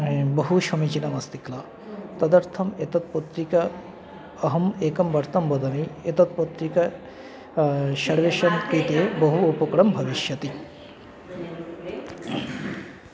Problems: constant background noise, continuous background conversations